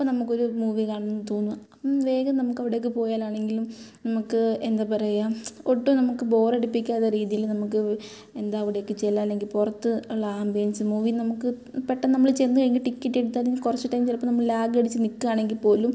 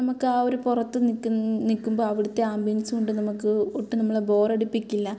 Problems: background sounds at intervals